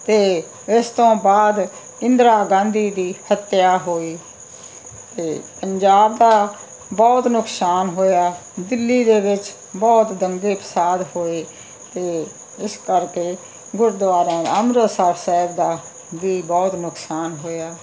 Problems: background sounds at intervals